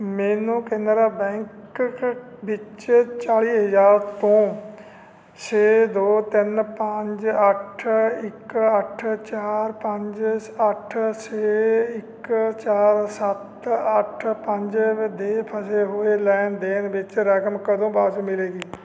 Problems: background sounds at intervals